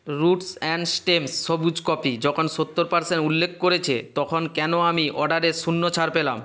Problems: constant background noise